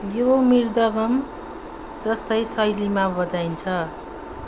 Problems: background sounds at intervals